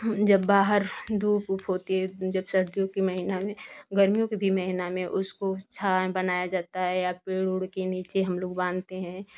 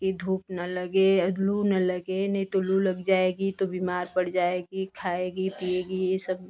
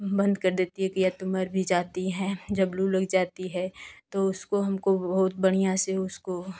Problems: constant background noise